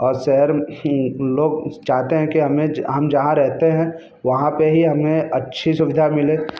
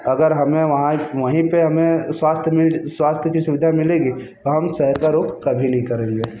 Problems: constant background noise